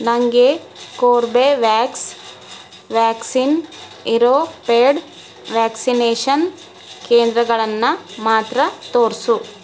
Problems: constant background noise